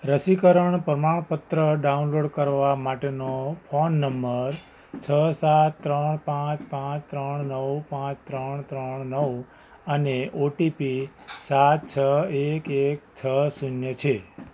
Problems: background sounds at intervals